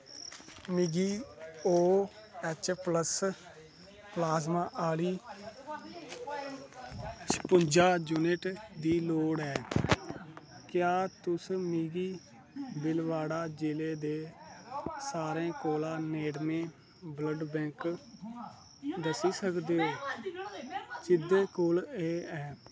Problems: constant background noise, low volume